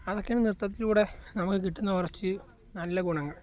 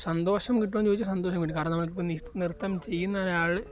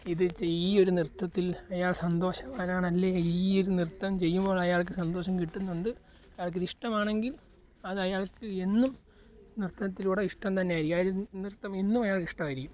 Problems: none marked